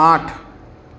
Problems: none marked